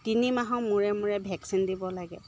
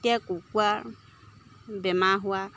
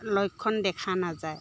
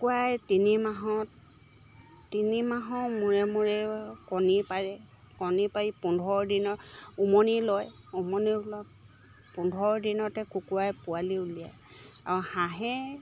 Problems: none marked